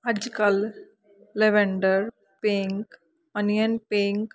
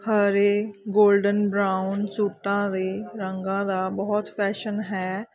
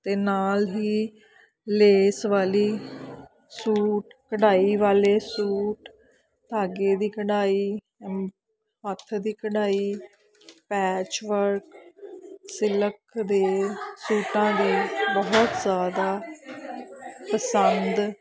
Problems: constant background noise, continuous background conversations